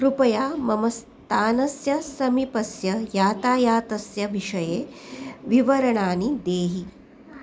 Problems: none marked